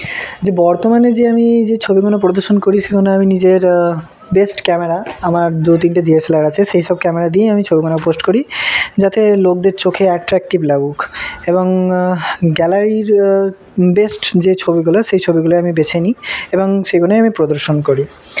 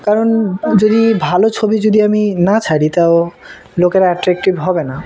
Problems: constant background noise, background conversations at intervals